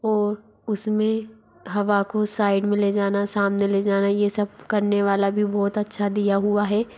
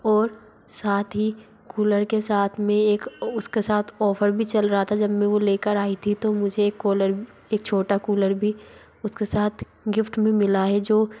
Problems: constant background noise